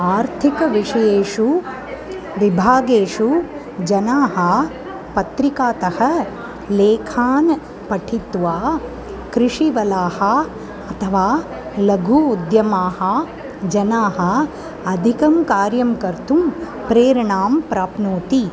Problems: none marked